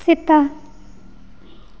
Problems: echo